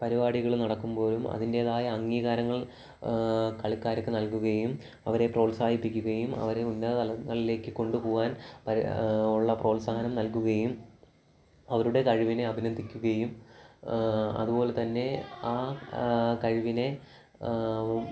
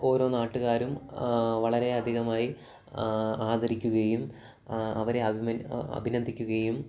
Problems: background sounds at intervals